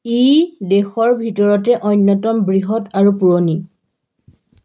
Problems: background sounds at intervals